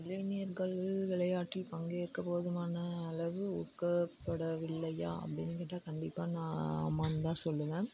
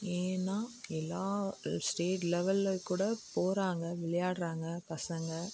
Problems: background sounds at intervals, low volume